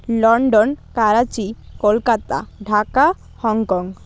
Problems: constant background noise